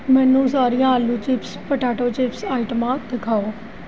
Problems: none marked